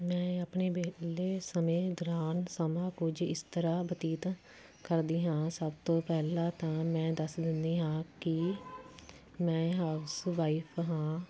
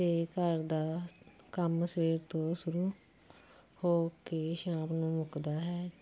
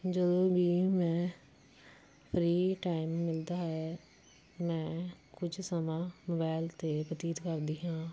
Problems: constant background noise